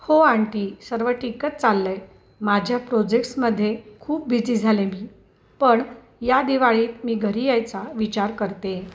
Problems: background sounds at intervals